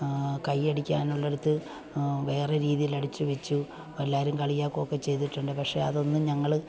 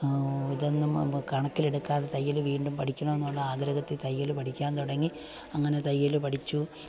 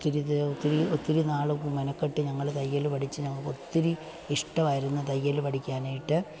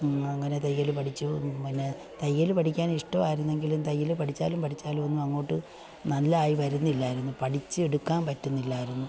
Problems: background sounds at intervals, low volume